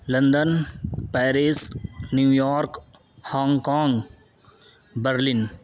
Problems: constant background noise